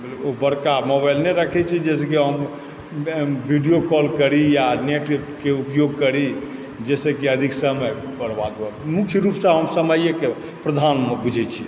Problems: constant background noise